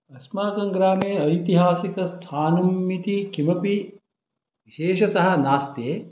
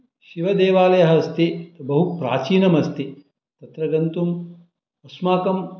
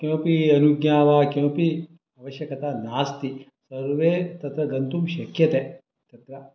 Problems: background sounds at intervals